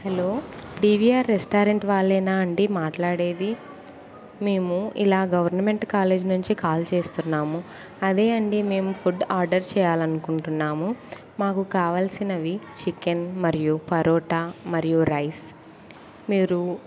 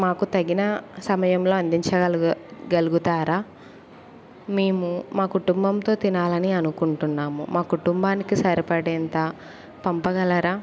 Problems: background conversations at intervals